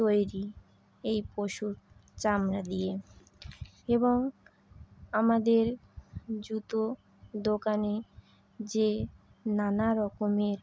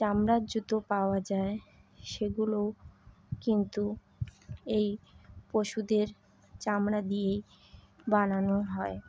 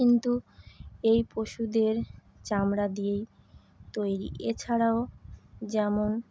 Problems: constant background noise